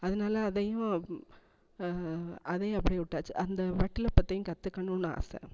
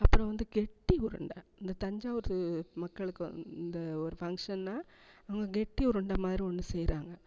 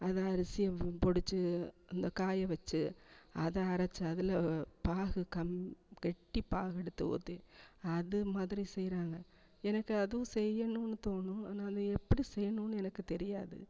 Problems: echo